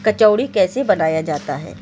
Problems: background sounds at intervals